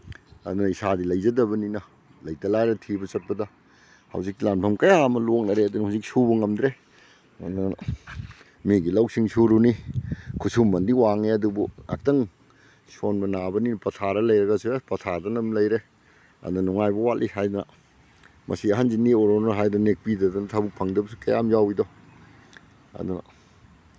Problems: none marked